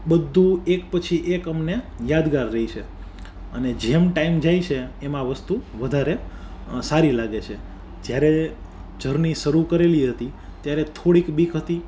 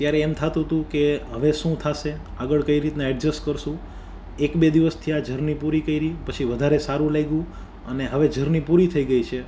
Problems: none marked